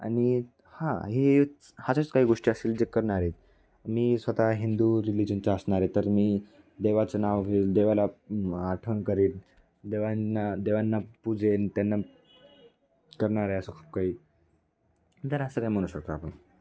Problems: none marked